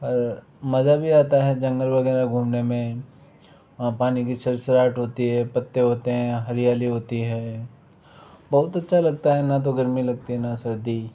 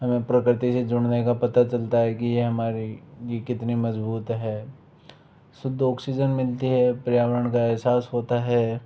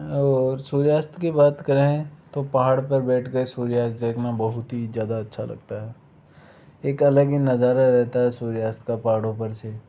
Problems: background sounds at intervals